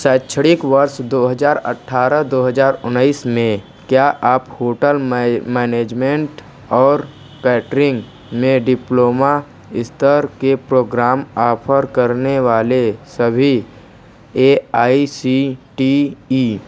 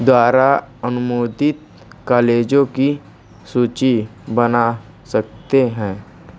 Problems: constant background noise